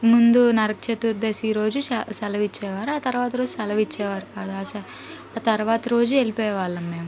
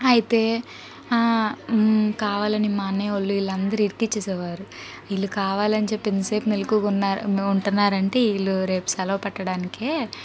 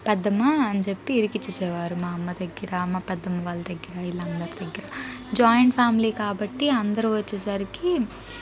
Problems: background conversations at intervals